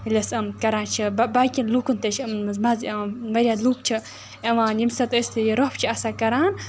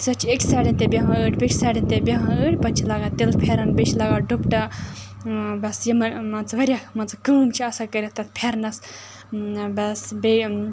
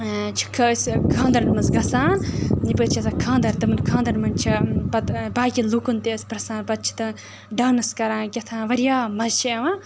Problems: constant background noise